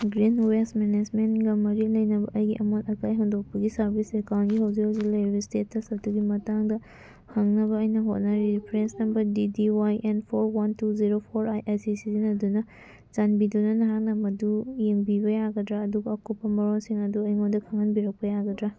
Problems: background sounds at intervals, background conversations at intervals